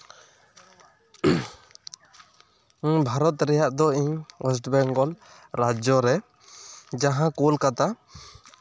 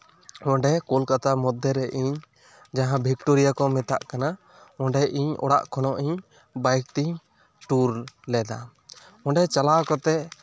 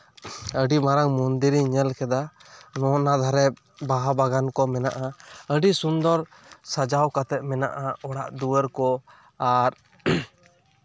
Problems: none marked